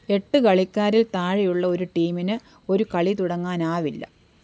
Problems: background sounds at intervals